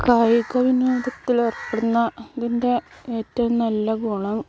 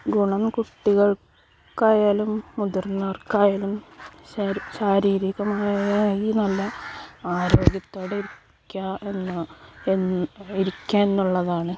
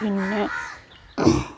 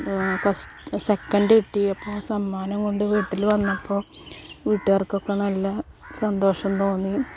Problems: background sounds at intervals